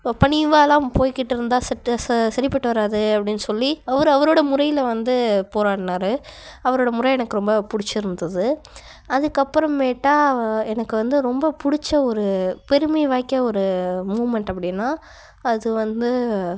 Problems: background sounds at intervals